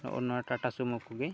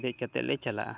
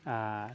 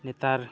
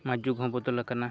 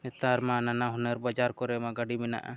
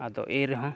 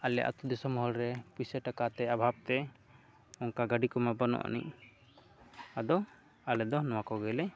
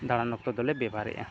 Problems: constant background noise